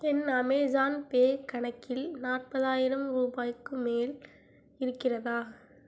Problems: low volume